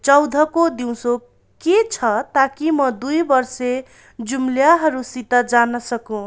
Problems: none marked